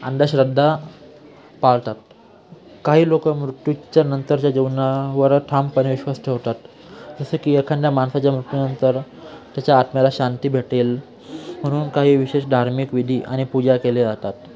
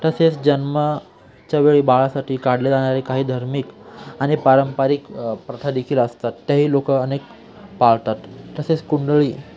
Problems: constant background noise, continuous background conversations